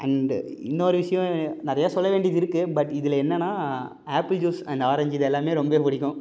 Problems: none marked